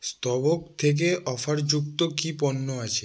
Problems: none marked